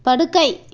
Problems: none marked